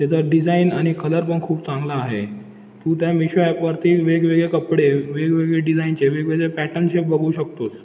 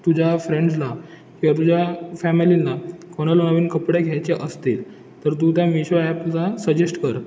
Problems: constant background noise